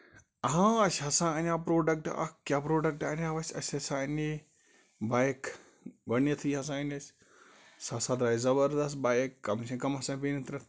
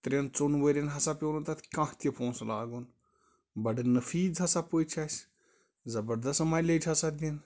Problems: none marked